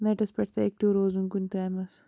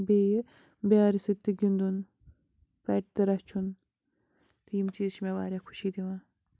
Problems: constant background noise